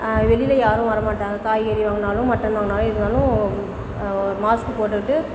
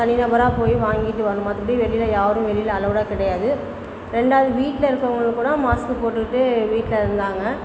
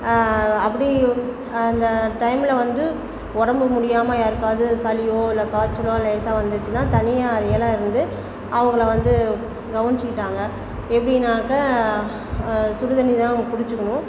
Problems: constant background noise, background conversations at intervals